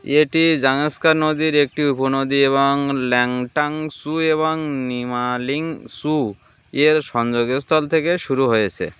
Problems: constant background noise